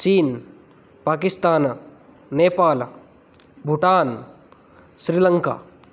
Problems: none marked